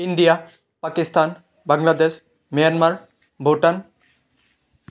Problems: none marked